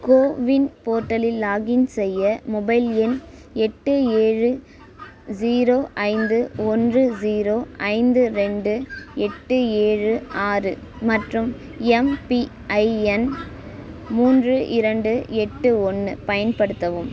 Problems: none marked